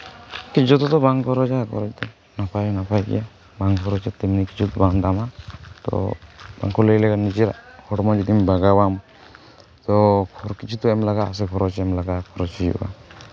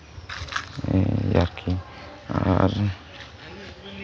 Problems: constant background noise, background conversations at intervals